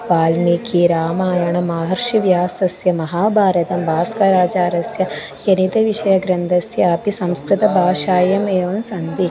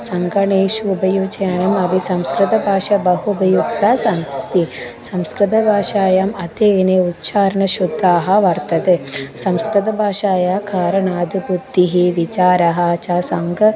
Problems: none marked